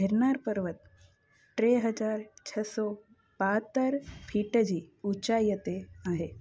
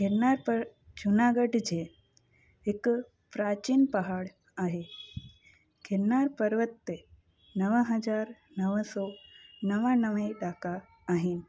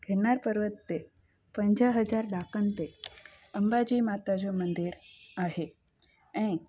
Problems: constant background noise